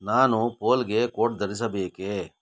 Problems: none marked